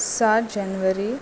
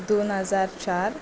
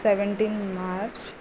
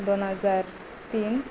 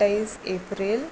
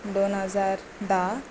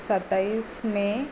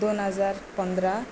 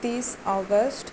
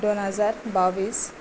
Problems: constant background noise